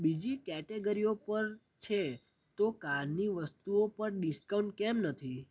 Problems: none marked